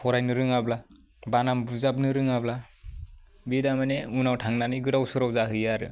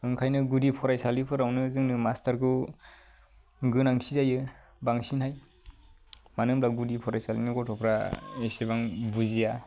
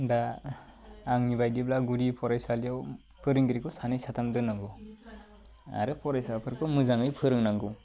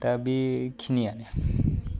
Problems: low volume